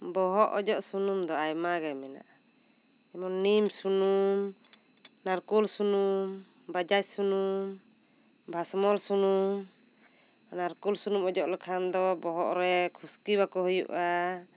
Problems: none marked